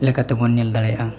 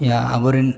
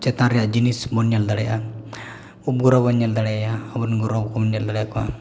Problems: background sounds at intervals